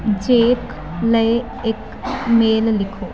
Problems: constant background noise